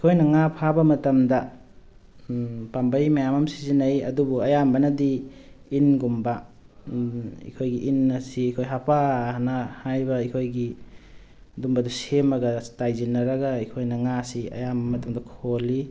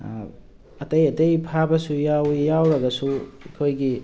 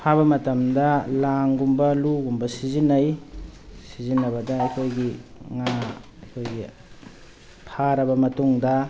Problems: background sounds at intervals